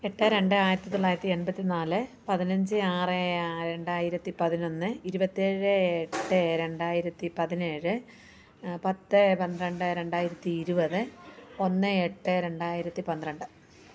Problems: none marked